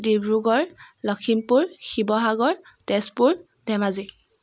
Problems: none marked